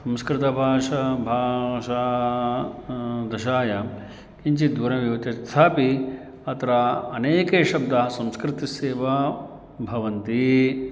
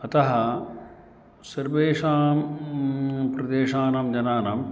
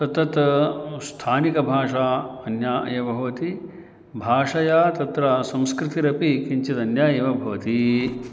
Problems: constant background noise